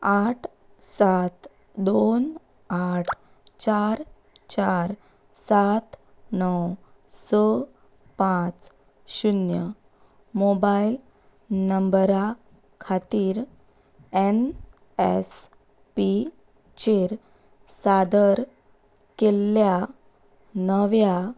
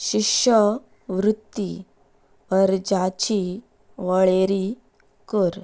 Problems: background sounds at intervals